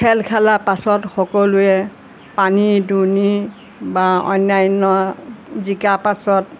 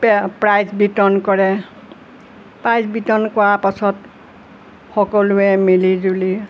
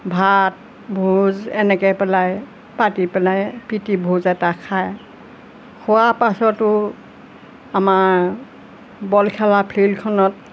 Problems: constant background noise